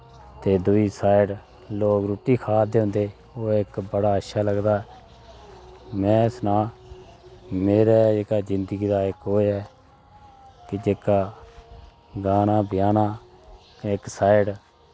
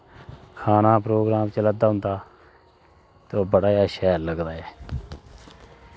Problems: constant background noise